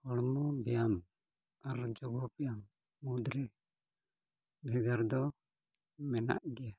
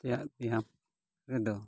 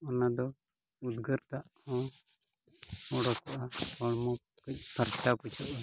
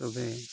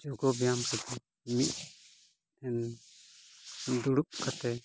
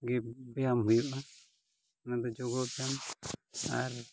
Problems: none marked